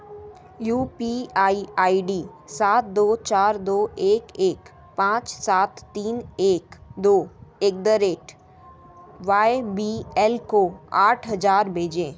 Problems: background sounds at intervals